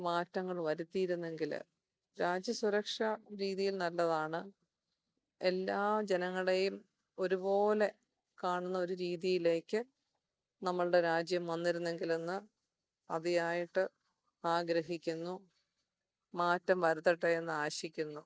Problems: none marked